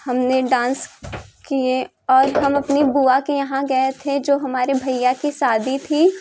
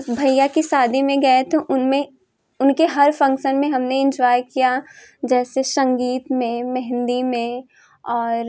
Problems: constant background noise